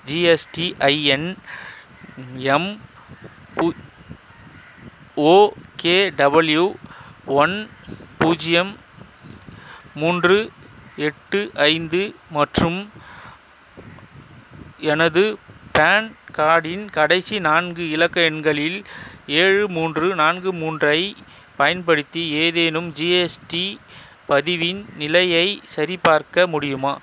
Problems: constant background noise